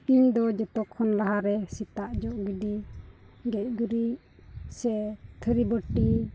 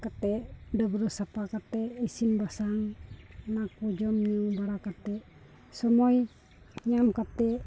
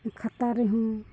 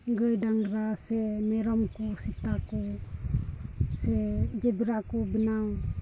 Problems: none marked